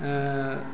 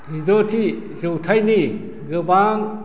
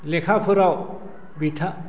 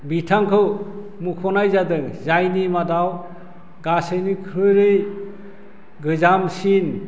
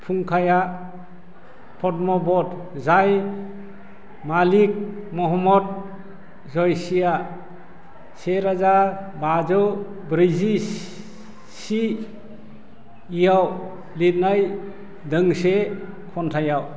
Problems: constant background noise